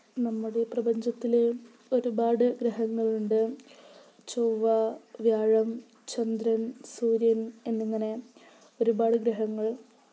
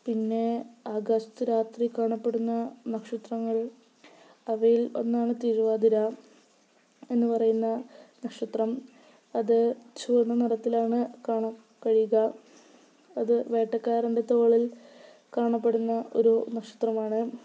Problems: low volume